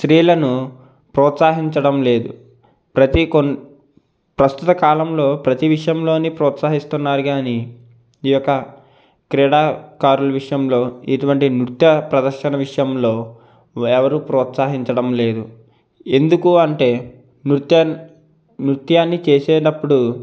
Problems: none marked